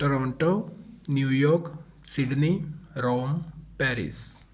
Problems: none marked